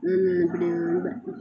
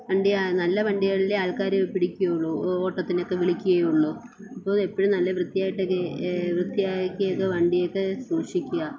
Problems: constant background noise, low volume